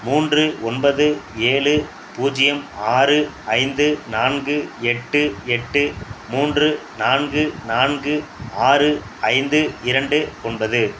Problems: none marked